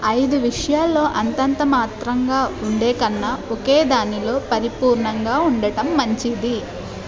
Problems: continuous background conversations